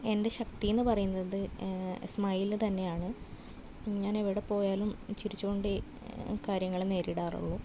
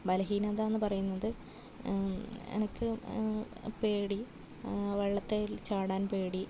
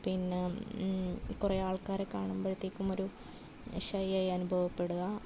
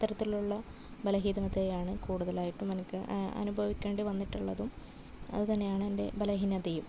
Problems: none marked